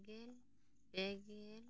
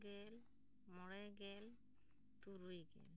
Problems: none marked